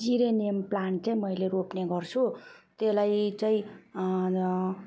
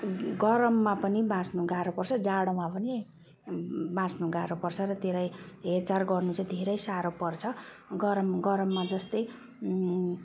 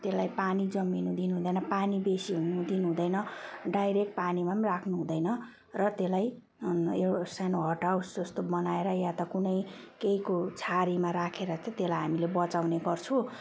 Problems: none marked